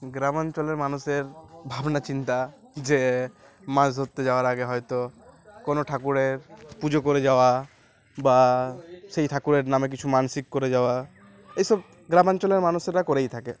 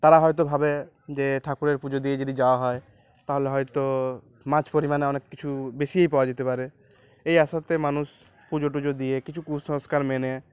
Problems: none marked